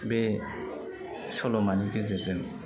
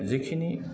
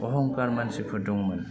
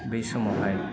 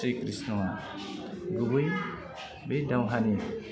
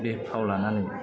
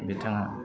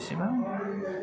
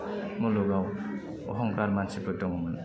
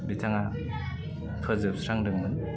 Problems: constant background noise